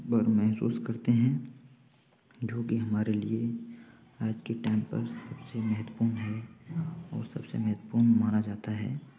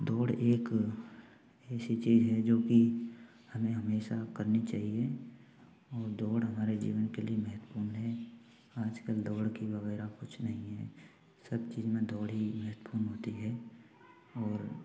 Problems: continuous background conversations, low volume